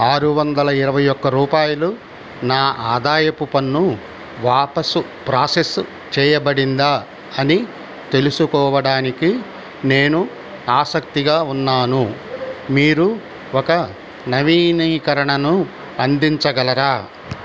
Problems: constant background noise